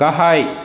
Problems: constant background noise